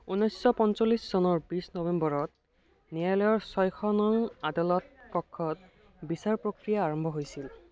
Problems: continuous background conversations